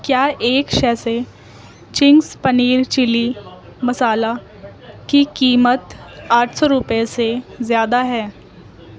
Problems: constant background noise, background conversations at intervals